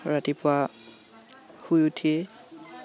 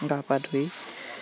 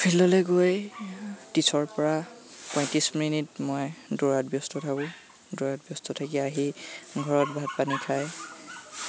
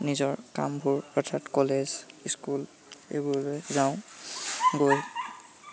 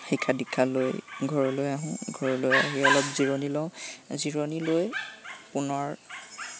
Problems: constant background noise, background conversations at intervals